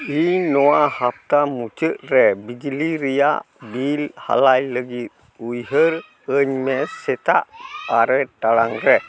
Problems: background sounds at intervals, continuous background conversations